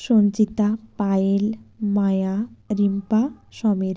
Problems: none marked